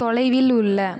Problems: continuous background conversations